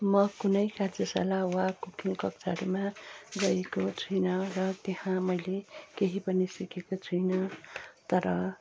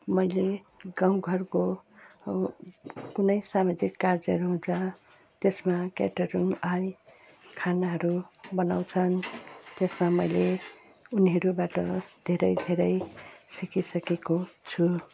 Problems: constant background noise